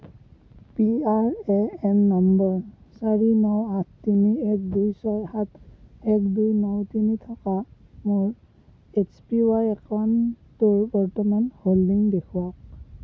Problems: low volume